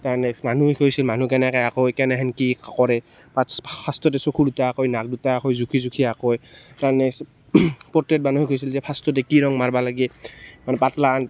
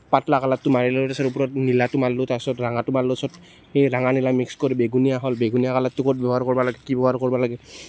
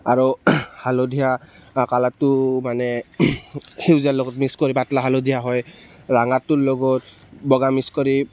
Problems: background sounds at intervals, background conversations at intervals